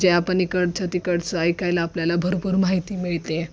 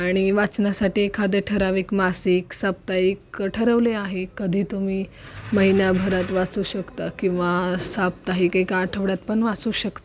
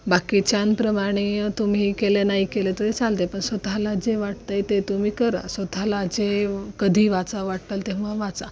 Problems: constant background noise, background conversations at intervals